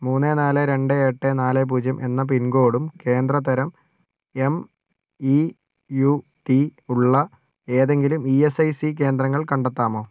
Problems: none marked